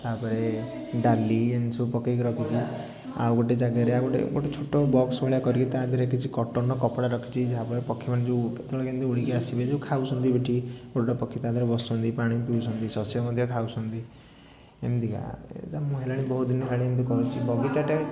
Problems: background sounds at intervals, continuous background conversations